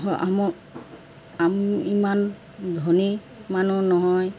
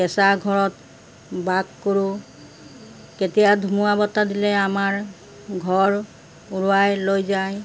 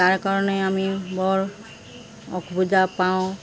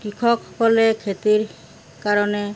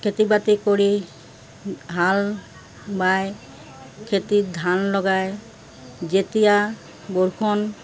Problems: constant background noise